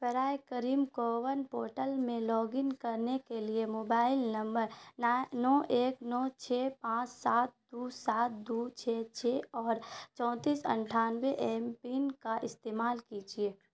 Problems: constant background noise